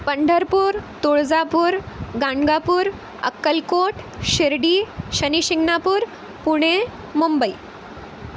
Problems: constant background noise